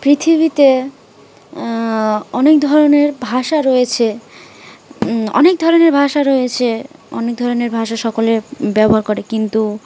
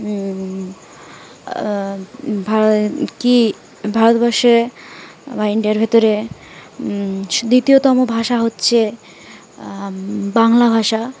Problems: constant background noise